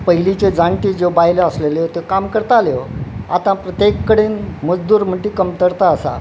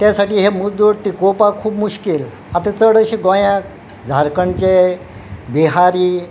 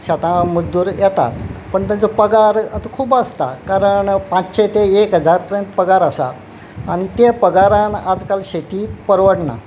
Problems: none marked